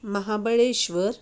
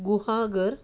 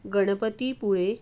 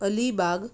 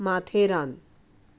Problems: none marked